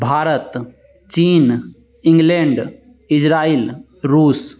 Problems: constant background noise